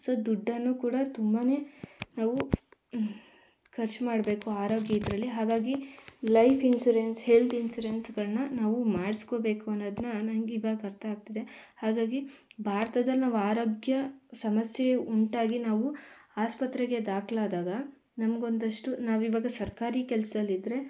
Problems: none marked